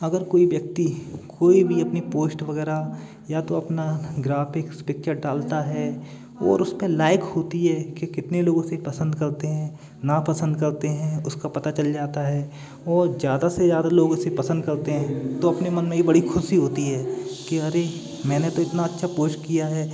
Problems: constant background noise, continuous background conversations